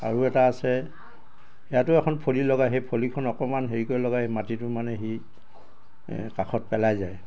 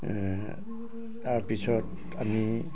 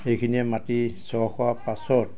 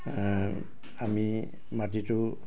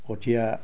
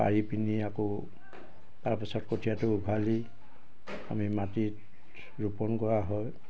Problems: constant background noise, background conversations at intervals